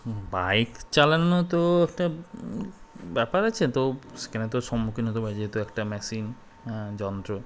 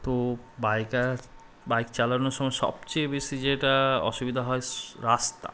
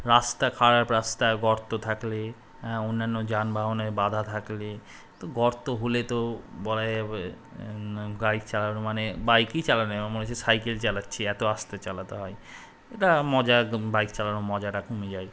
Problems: constant background noise